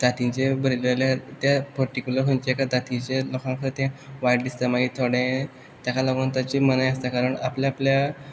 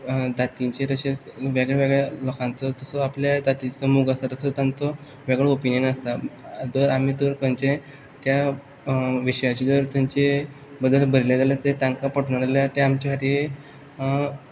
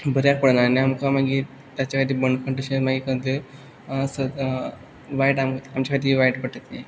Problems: background sounds at intervals